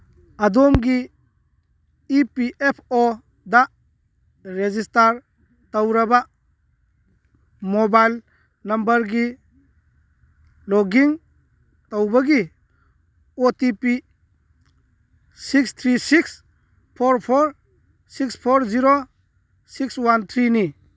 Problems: none marked